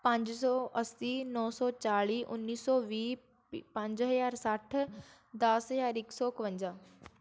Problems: none marked